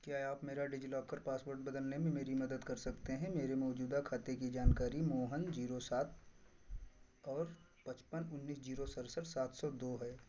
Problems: none marked